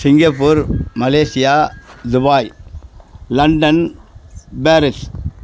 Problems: none marked